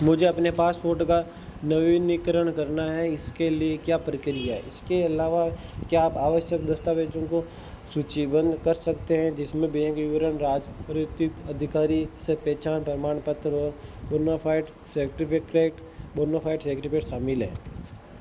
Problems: constant background noise